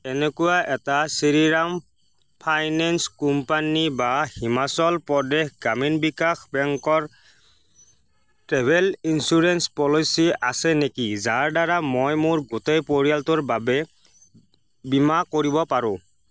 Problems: none marked